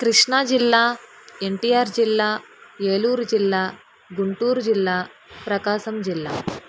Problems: none marked